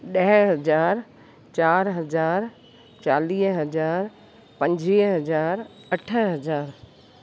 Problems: constant background noise, echo